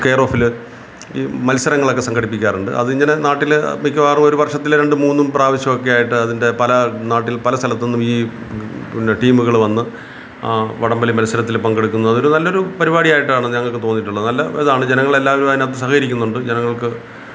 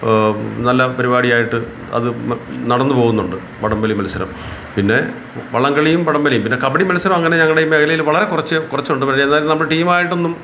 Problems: constant background noise